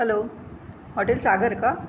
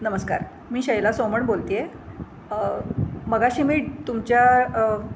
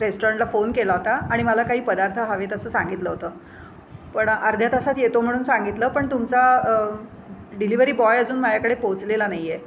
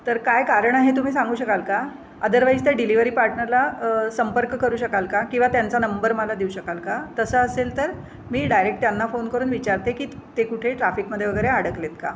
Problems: constant background noise